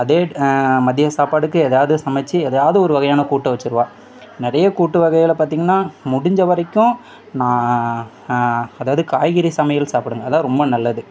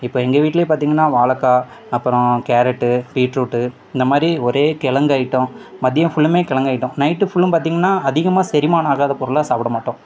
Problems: background conversations at intervals